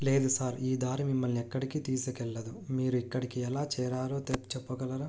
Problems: none marked